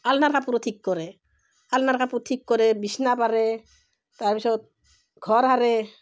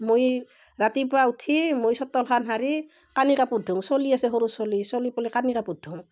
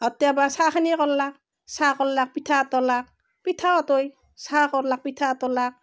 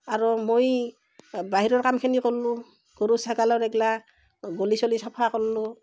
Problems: constant background noise